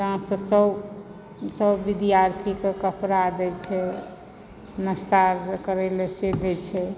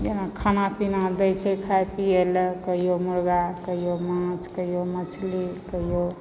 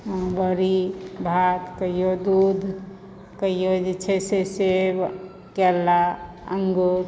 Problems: background sounds at intervals